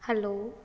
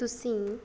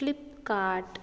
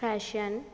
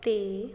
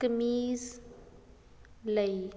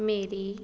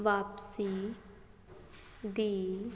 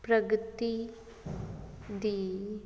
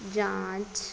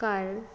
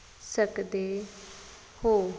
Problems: none marked